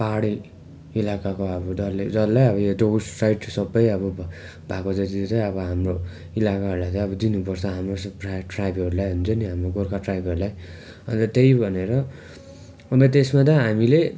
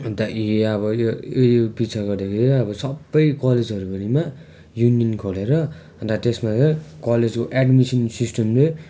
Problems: none marked